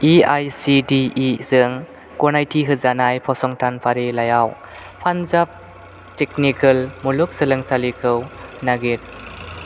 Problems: none marked